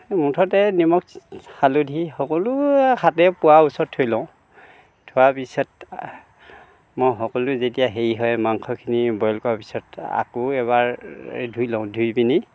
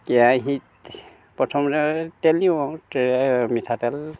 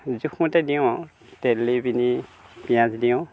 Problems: none marked